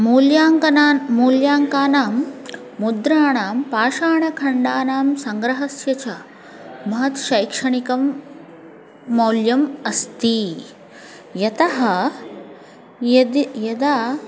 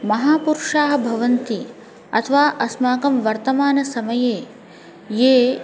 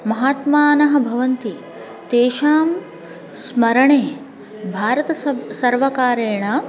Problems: constant background noise, continuous background conversations